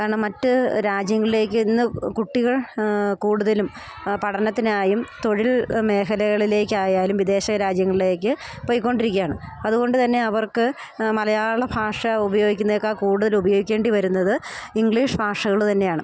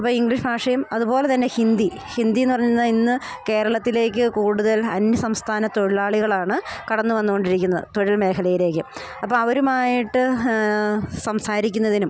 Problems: none marked